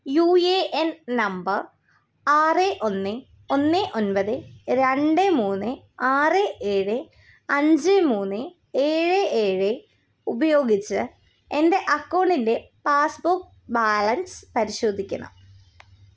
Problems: none marked